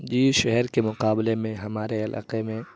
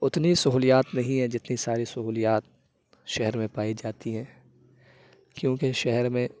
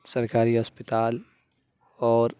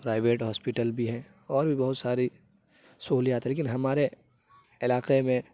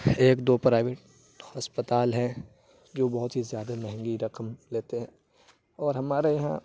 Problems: background sounds at intervals, low volume